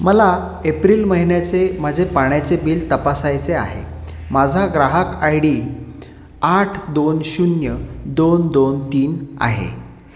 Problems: none marked